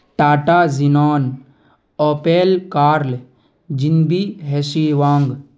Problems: none marked